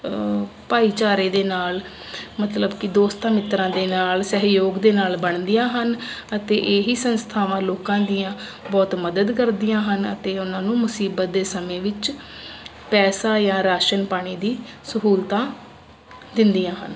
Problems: none marked